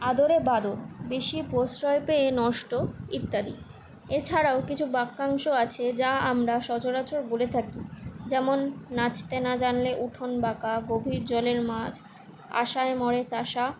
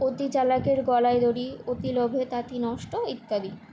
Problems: constant background noise